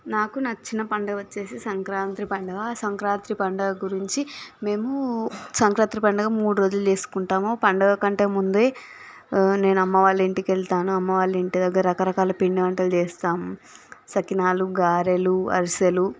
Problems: background sounds at intervals